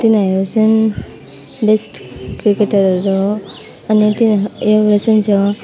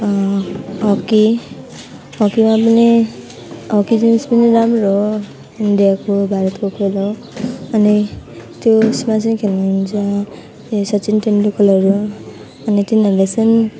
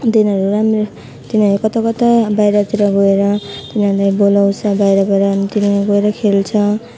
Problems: none marked